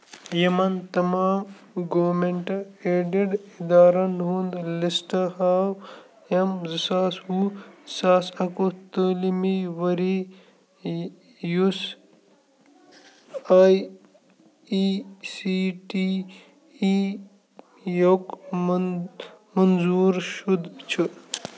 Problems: constant background noise, low volume